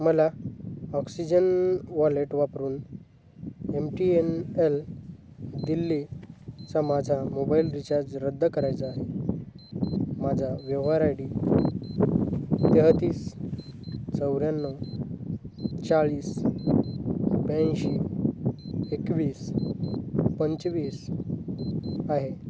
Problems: constant background noise, low volume